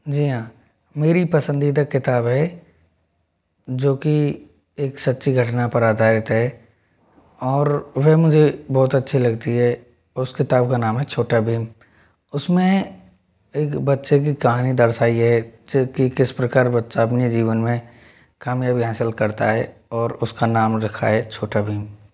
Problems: background sounds at intervals